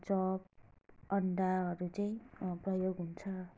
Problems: low volume